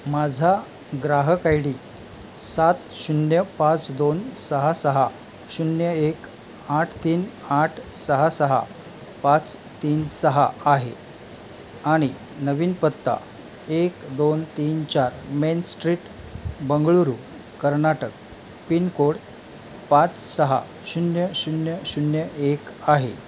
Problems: constant background noise